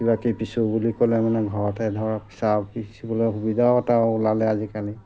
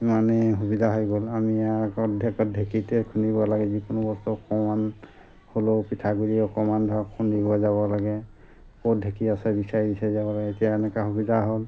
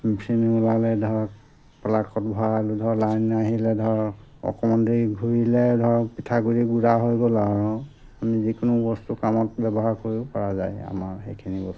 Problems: background sounds at intervals